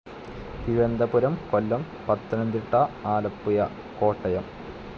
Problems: constant background noise